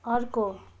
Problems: background sounds at intervals